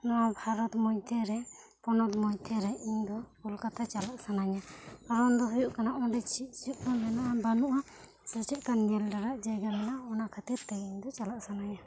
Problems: low volume